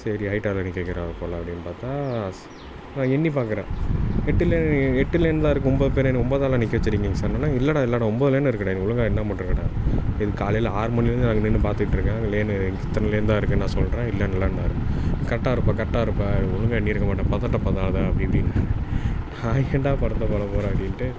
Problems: constant background noise